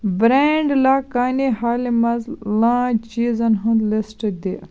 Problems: constant background noise